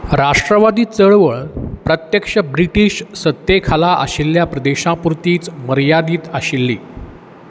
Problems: constant background noise